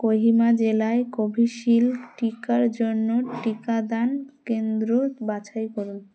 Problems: constant background noise